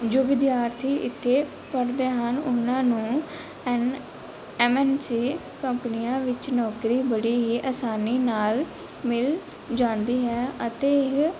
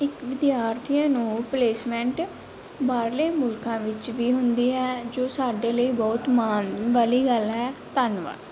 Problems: none marked